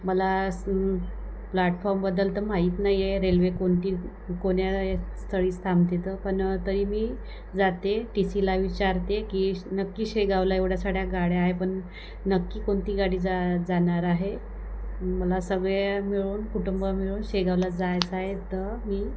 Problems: none marked